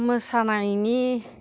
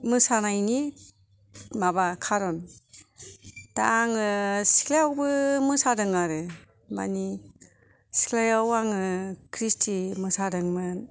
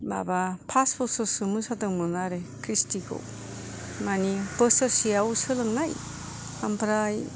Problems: none marked